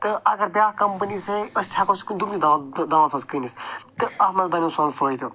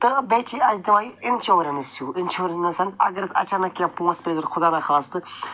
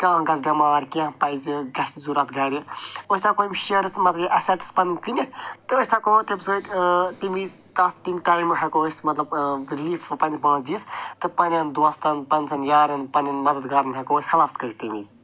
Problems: none marked